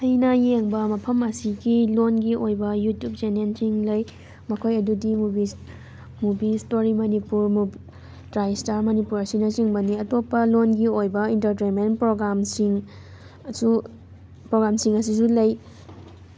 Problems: constant background noise